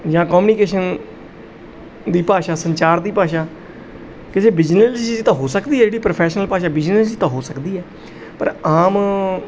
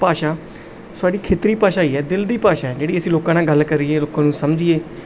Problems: background sounds at intervals